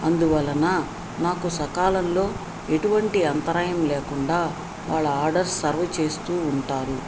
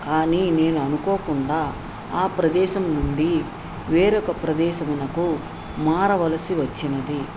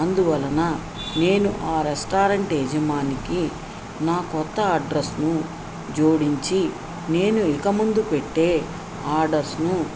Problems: constant background noise